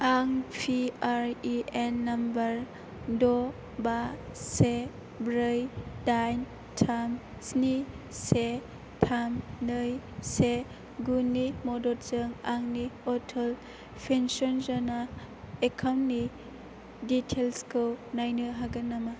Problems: constant background noise